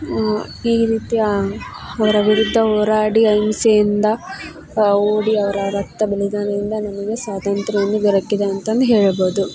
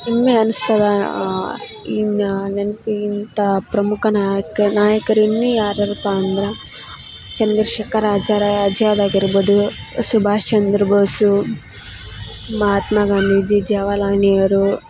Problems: background sounds at intervals